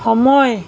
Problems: none marked